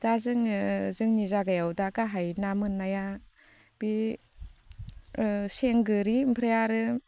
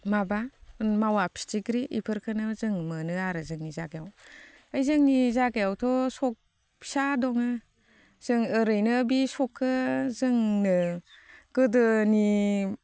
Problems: constant background noise